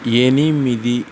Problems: constant background noise